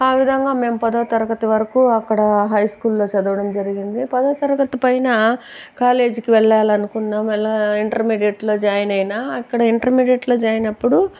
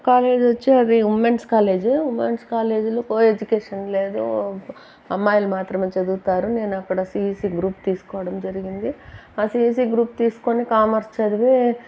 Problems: background sounds at intervals